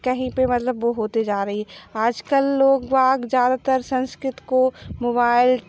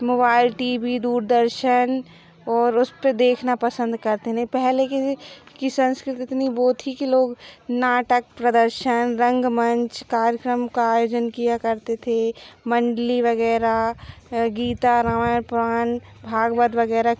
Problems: background sounds at intervals